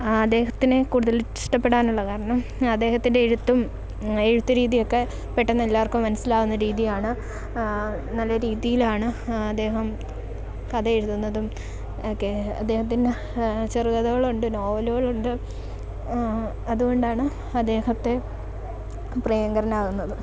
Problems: background sounds at intervals